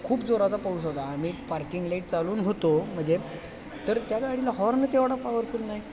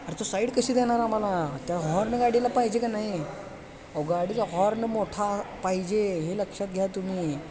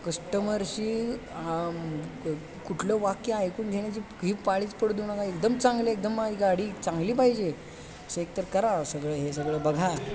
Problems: constant background noise, continuous background conversations